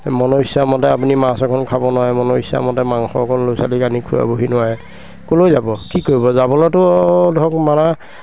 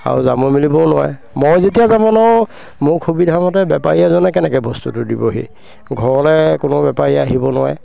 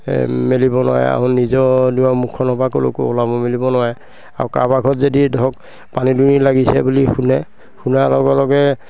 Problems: constant background noise, background conversations at intervals